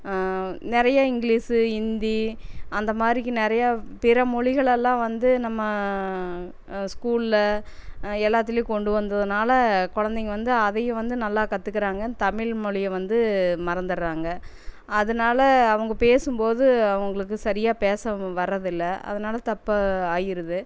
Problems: none marked